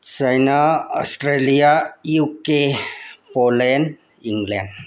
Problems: none marked